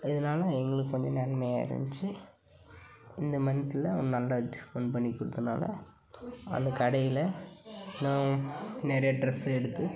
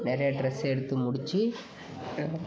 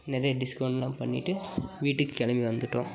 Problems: background sounds at intervals, background conversations at intervals